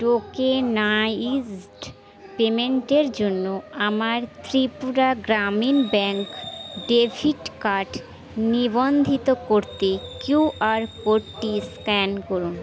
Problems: none marked